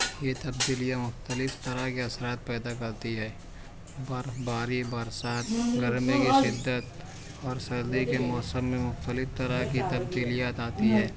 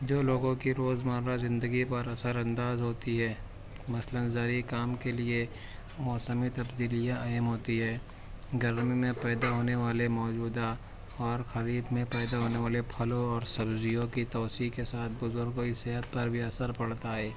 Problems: constant background noise